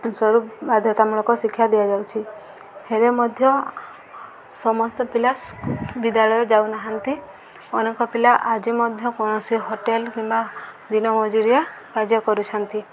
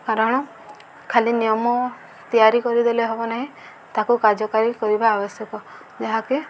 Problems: background sounds at intervals